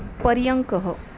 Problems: constant background noise